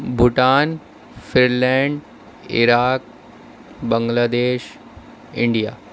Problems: constant background noise